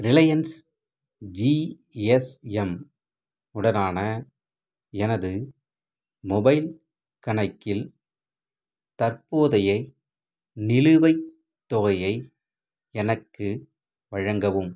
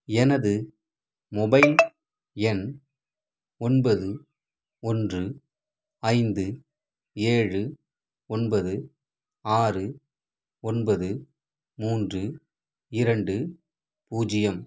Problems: background sounds at intervals